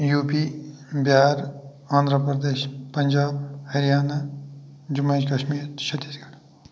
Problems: none marked